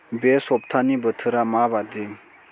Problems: constant background noise